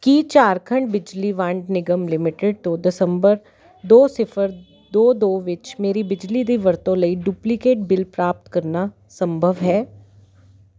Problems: constant background noise